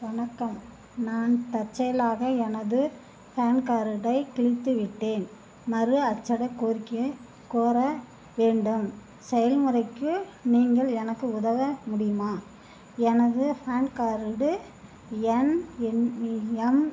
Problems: none marked